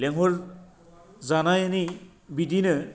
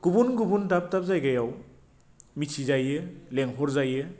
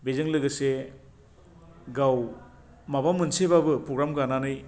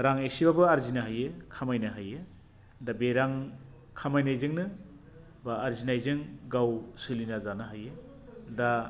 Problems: none marked